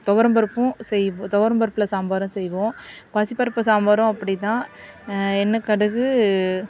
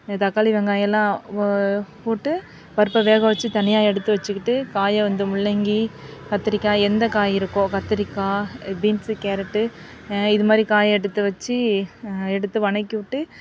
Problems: constant background noise